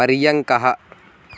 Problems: background sounds at intervals